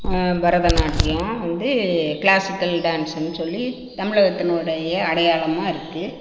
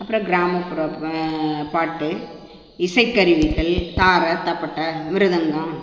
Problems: constant background noise